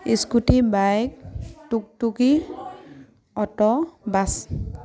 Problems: none marked